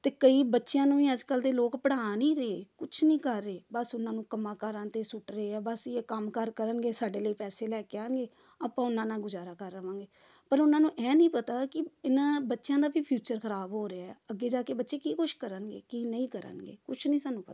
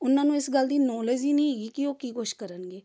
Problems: background conversations at intervals